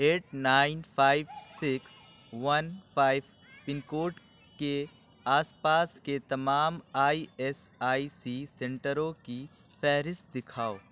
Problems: background sounds at intervals